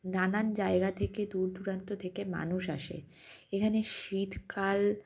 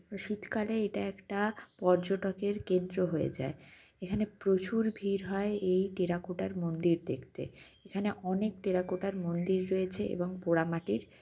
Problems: constant background noise